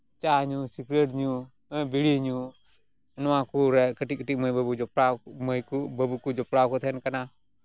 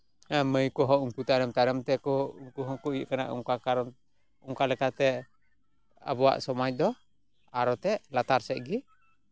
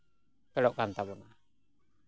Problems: background sounds at intervals